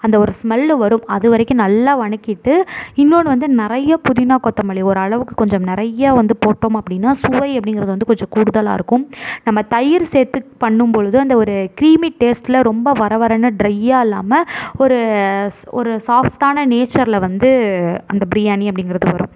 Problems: none marked